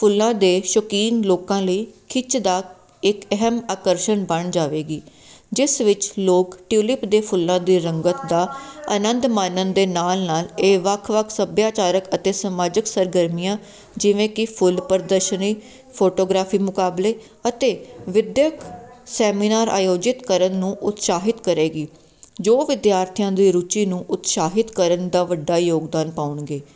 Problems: none marked